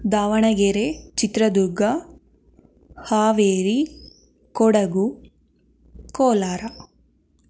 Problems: none marked